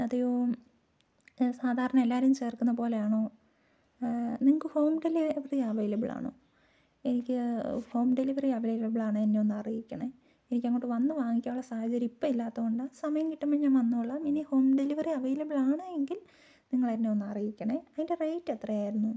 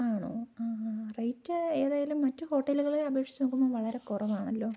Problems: low volume